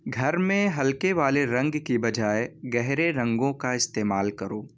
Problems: none marked